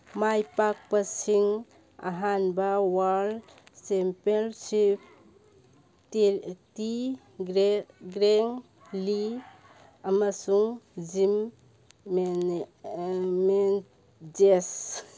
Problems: background sounds at intervals